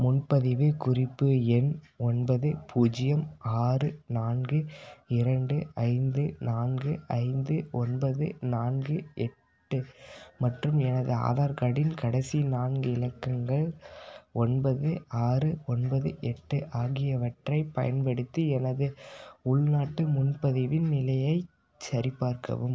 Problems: none marked